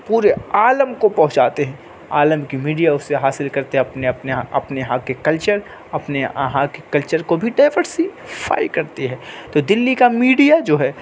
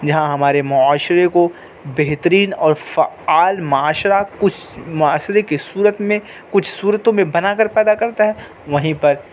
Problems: constant background noise